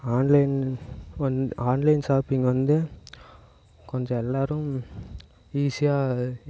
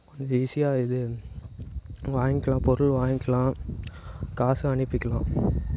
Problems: none marked